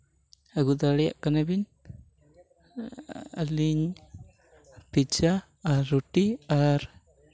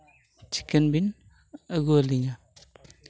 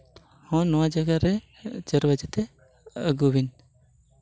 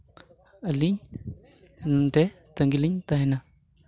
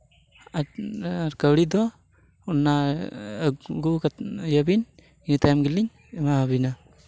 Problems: none marked